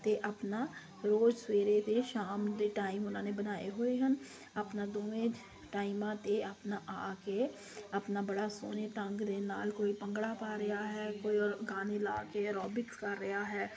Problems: constant background noise